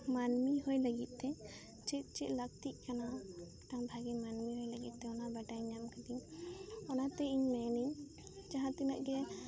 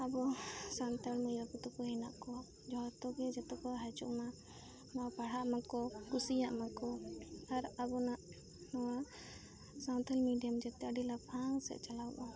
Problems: constant background noise, background conversations at intervals, low volume